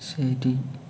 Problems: none marked